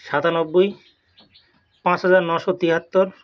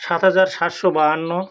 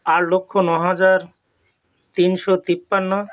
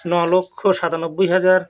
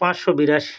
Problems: background sounds at intervals